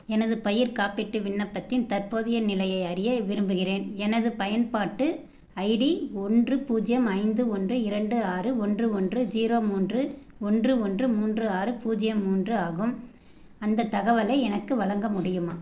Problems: none marked